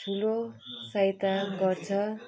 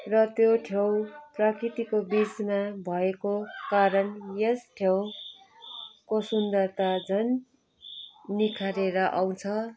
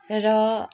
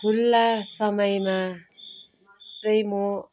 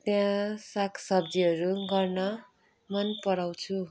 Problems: background sounds at intervals, continuous background conversations